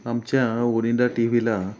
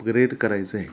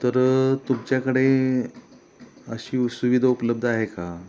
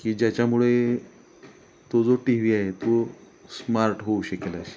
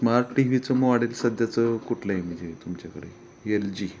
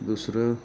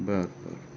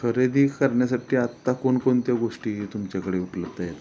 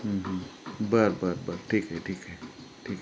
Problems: background sounds at intervals